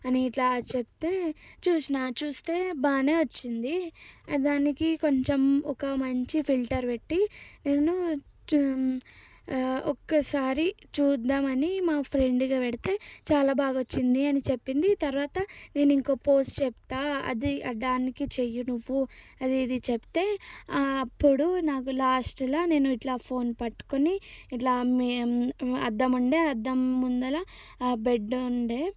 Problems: low volume